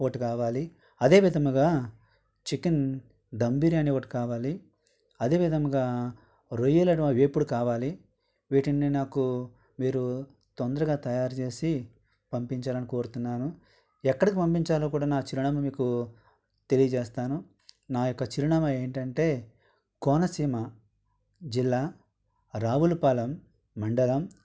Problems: background sounds at intervals